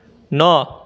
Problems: constant background noise